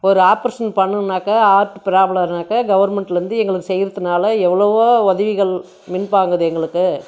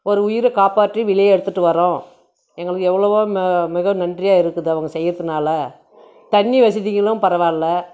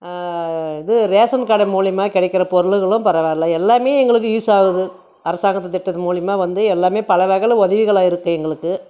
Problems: none marked